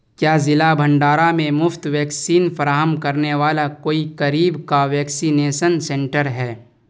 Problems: none marked